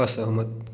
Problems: background sounds at intervals